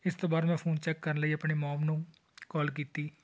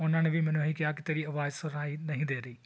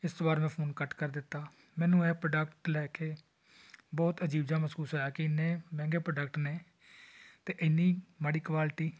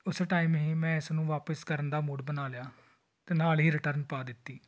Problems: none marked